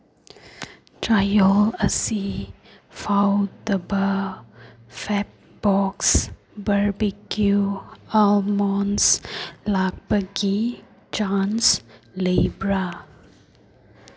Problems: none marked